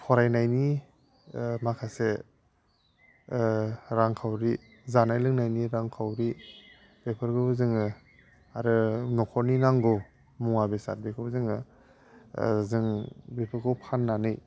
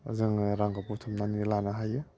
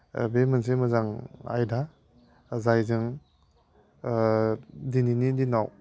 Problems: none marked